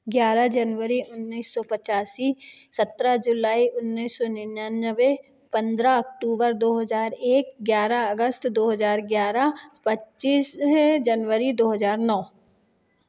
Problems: none marked